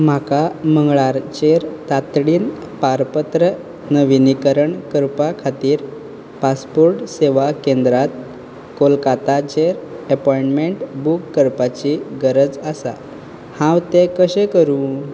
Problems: constant background noise